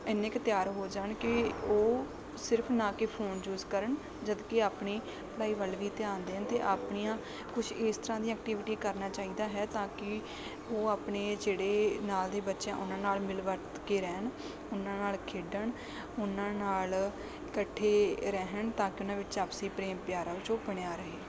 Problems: constant background noise